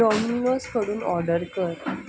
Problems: constant background noise